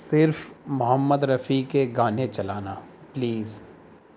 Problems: constant background noise